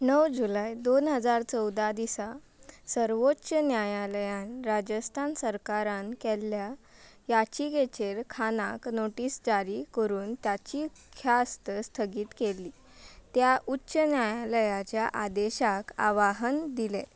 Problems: none marked